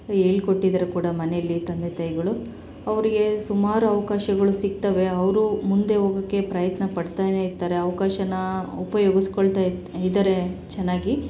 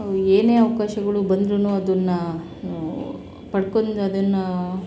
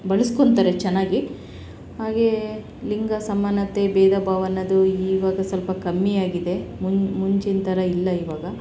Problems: none marked